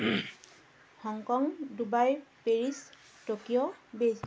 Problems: background sounds at intervals